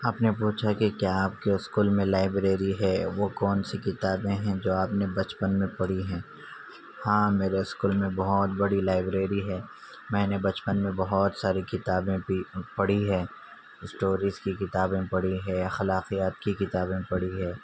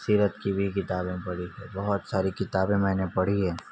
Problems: none marked